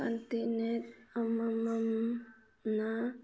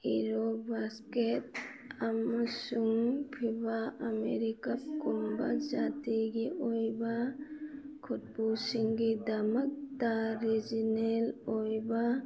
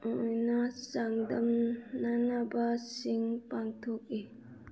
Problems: background conversations at intervals